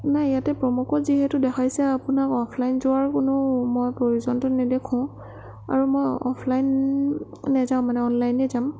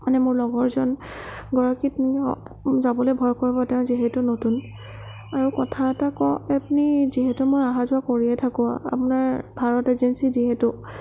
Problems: none marked